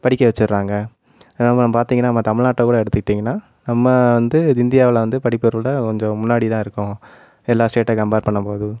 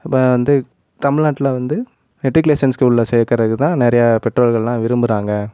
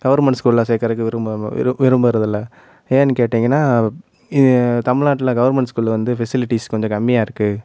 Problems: none marked